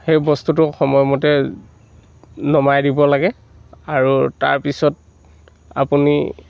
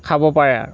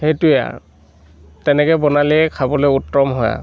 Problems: constant background noise